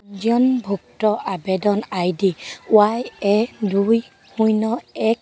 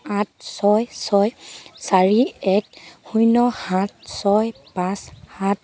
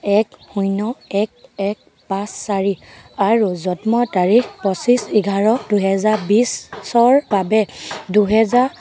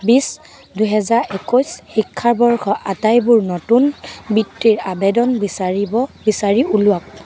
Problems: constant background noise, background conversations at intervals